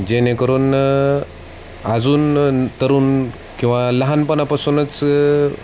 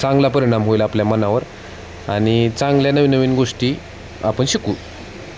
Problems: constant background noise, background conversations at intervals